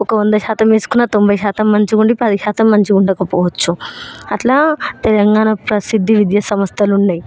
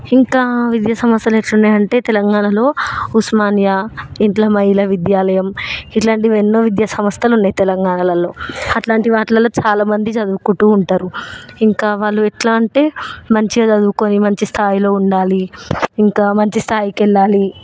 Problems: constant background noise